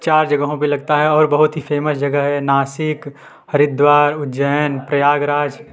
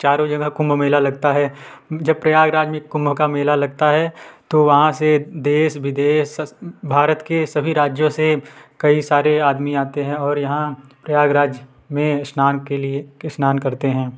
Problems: none marked